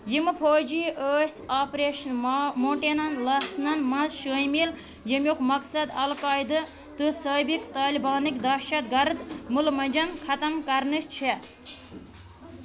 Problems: constant background noise